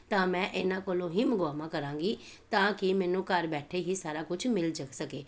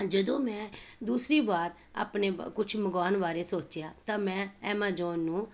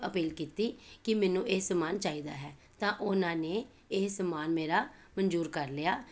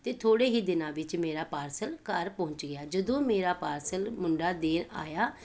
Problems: background sounds at intervals